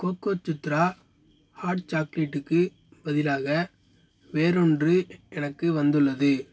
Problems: constant background noise